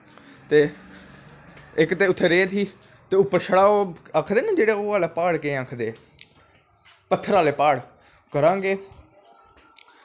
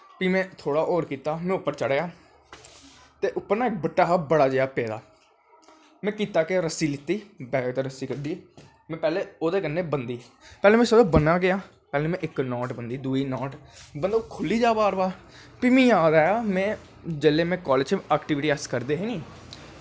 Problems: constant background noise